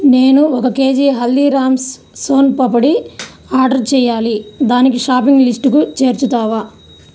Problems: background sounds at intervals